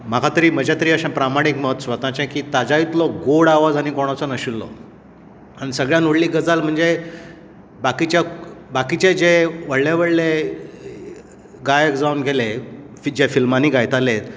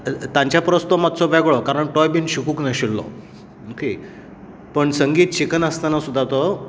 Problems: background sounds at intervals